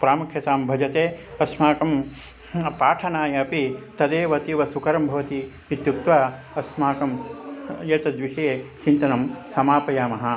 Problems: constant background noise, continuous background conversations